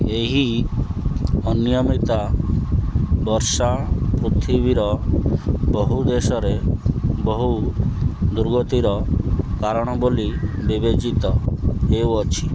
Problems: constant background noise